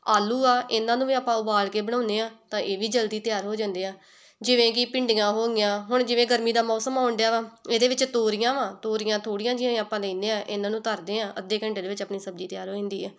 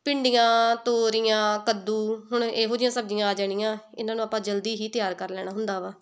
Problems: background conversations at intervals